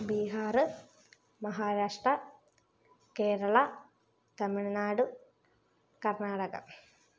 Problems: low volume